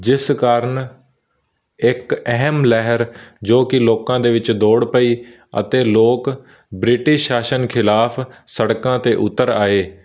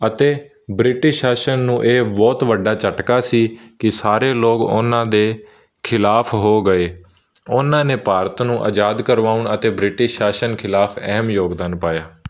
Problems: none marked